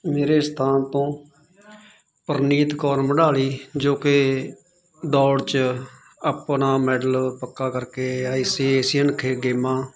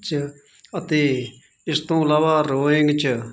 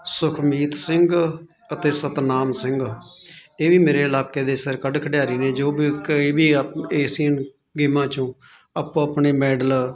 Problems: continuous background conversations